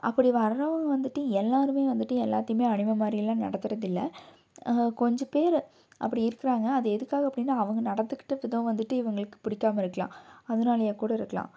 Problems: none marked